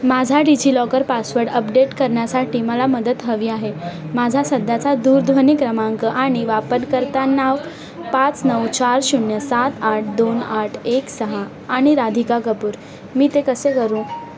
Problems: constant background noise, continuous background conversations